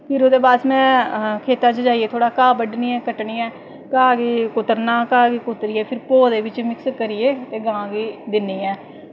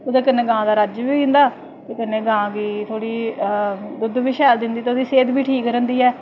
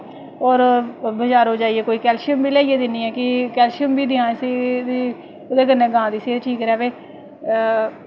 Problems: none marked